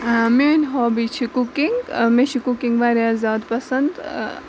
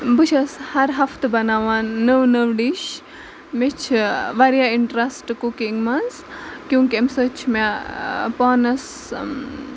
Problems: constant background noise, background conversations at intervals